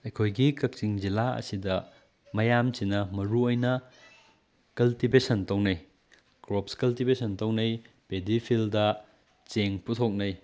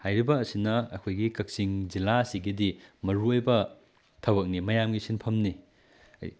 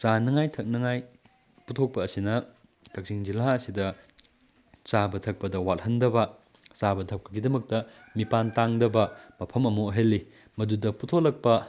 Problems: background sounds at intervals